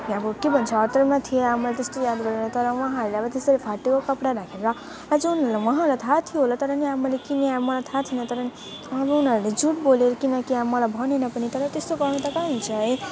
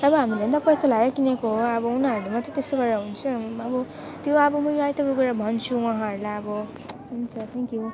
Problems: continuous background conversations